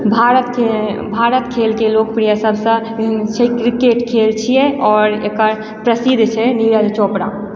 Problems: echo